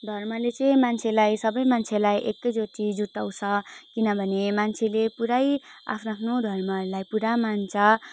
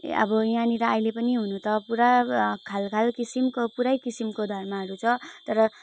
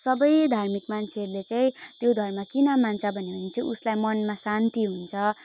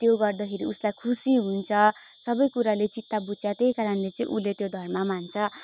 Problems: none marked